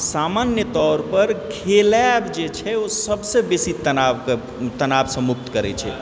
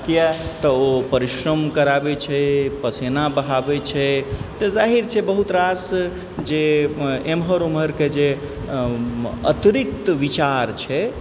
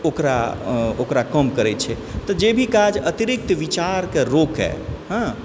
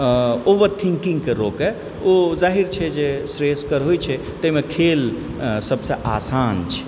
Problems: background sounds at intervals, background conversations at intervals